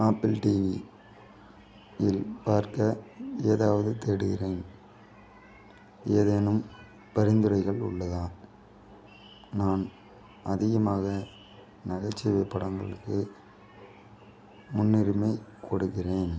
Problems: background conversations at intervals